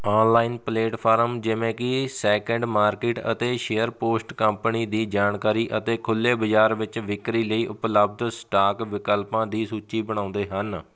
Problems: none marked